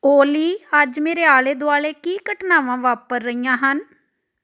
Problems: none marked